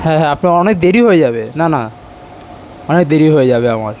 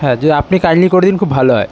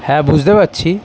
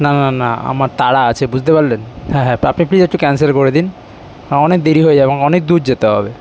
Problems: constant background noise